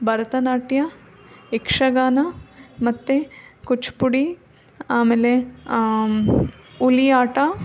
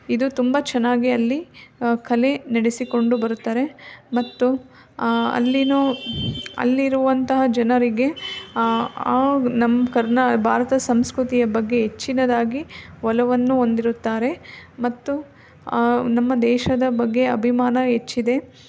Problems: background sounds at intervals